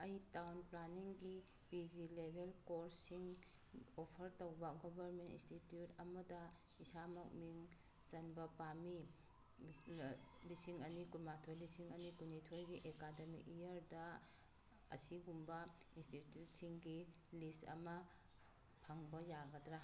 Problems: background sounds at intervals